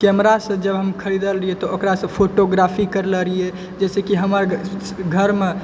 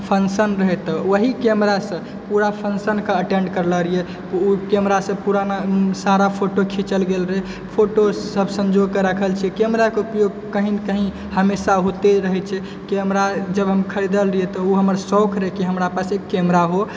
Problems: background sounds at intervals